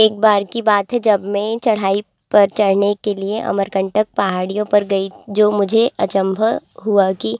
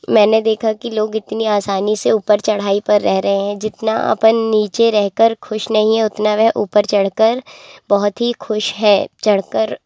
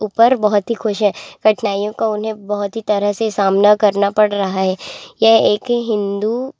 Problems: constant background noise, continuous background conversations